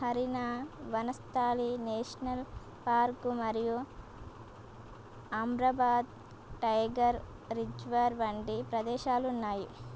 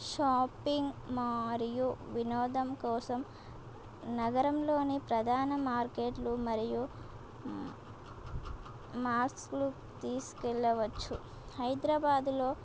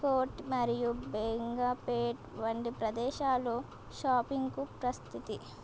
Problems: constant background noise